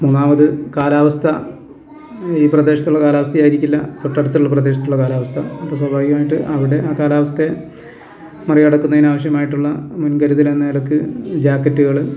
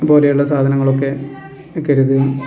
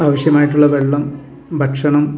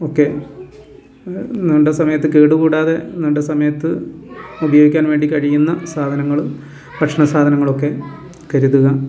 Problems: constant background noise